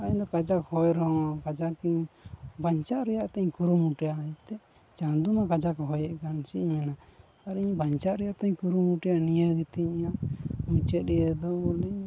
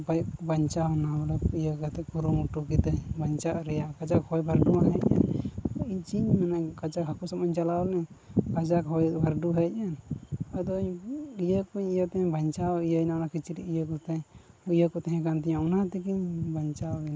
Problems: constant background noise, low volume